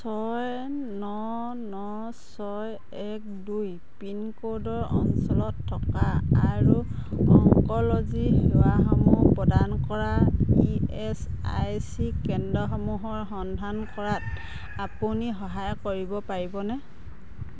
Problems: background sounds at intervals, background conversations at intervals